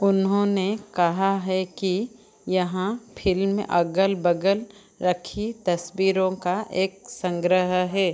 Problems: none marked